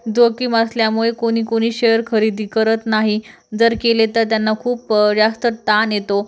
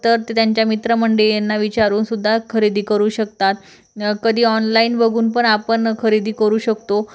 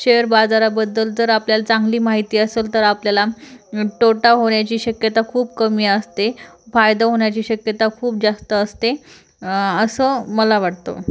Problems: none marked